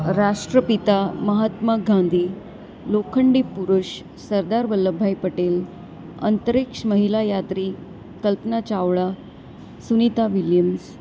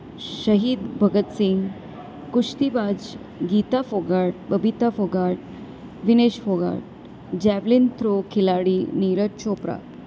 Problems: none marked